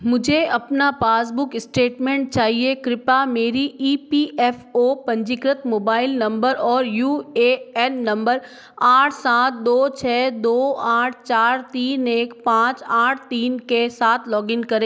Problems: none marked